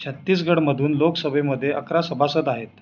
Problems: constant background noise